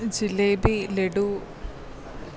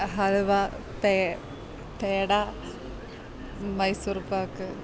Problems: background sounds at intervals